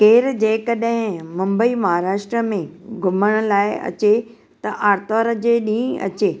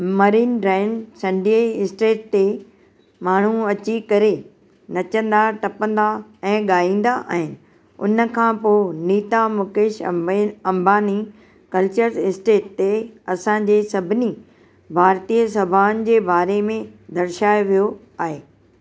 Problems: constant background noise